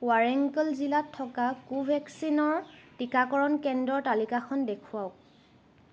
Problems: background sounds at intervals